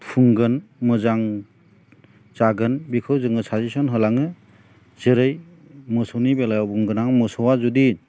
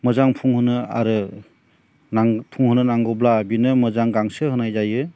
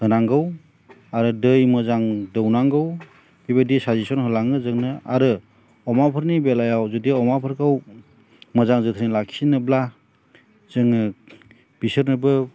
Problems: none marked